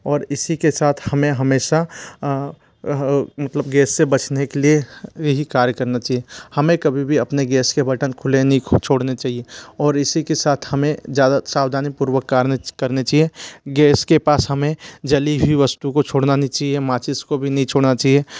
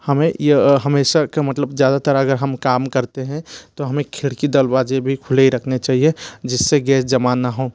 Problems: constant background noise